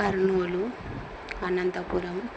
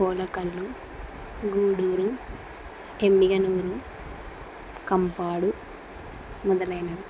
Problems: constant background noise